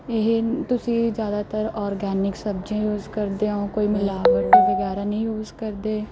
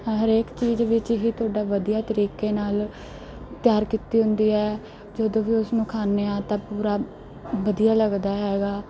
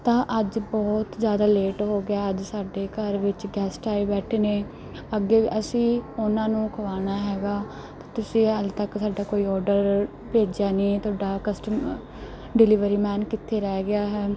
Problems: constant background noise